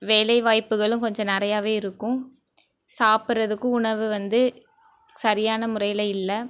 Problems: background conversations at intervals